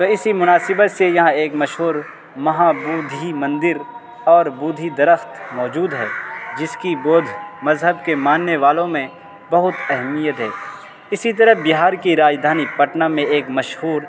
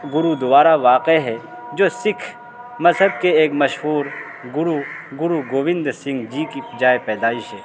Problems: constant background noise